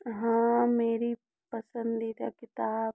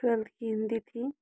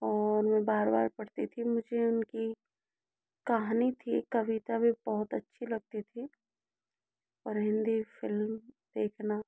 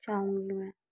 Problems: low volume